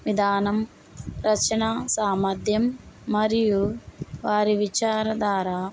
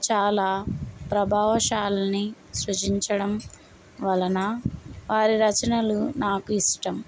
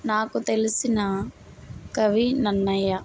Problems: none marked